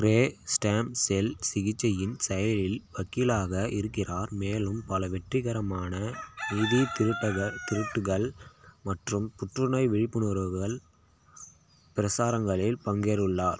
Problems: constant background noise